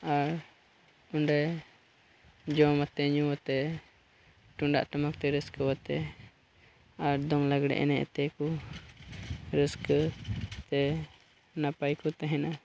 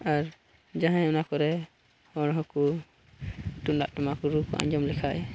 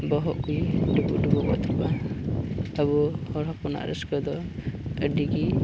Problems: constant background noise, low volume